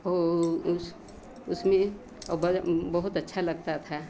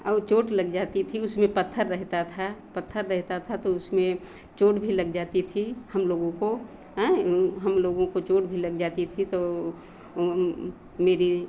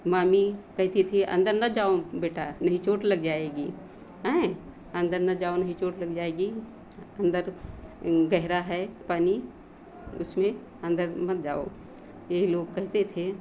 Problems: none marked